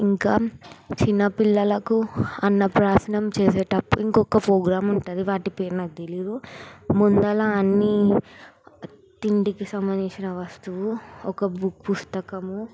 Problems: background sounds at intervals